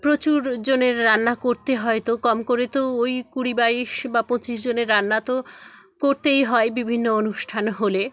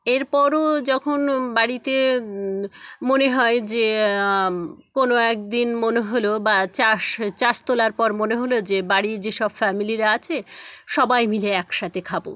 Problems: background sounds at intervals, background conversations at intervals